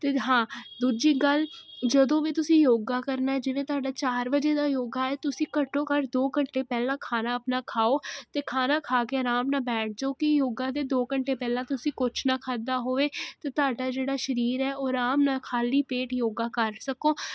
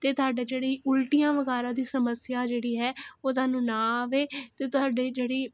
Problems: constant background noise